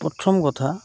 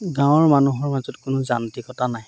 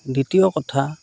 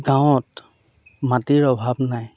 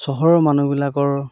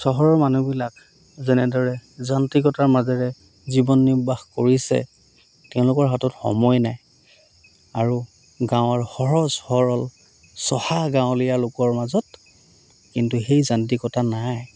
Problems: none marked